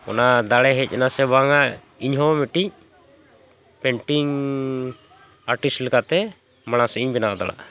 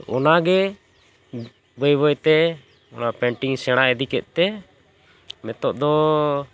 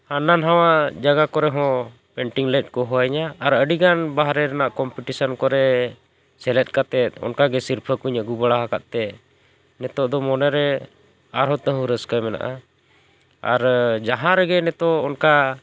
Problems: none marked